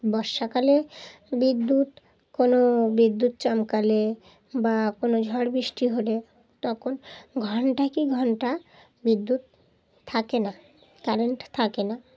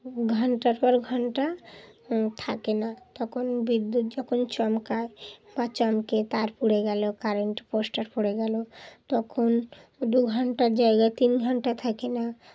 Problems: background sounds at intervals, background conversations at intervals